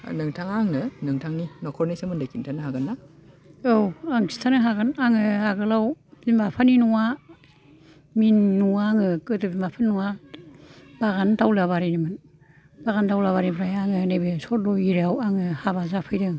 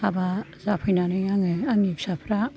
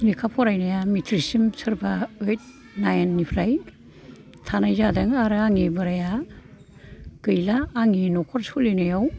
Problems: continuous background conversations